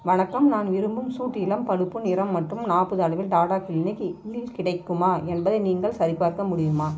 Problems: constant background noise